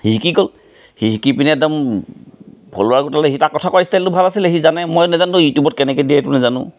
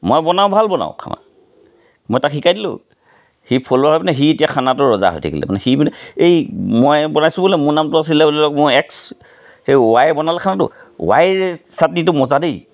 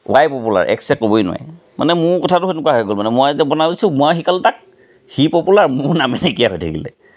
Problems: none marked